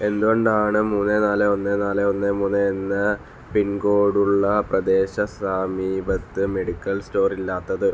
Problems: none marked